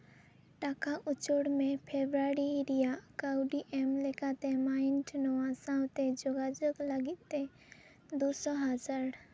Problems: low volume